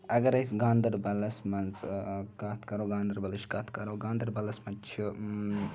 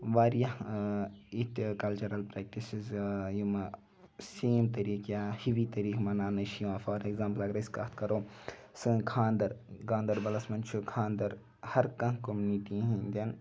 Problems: background sounds at intervals